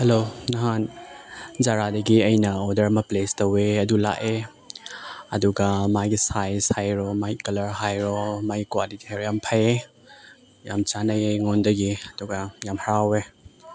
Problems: background sounds at intervals